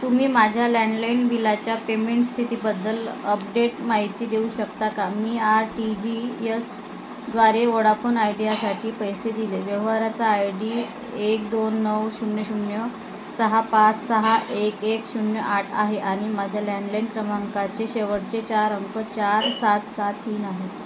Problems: constant background noise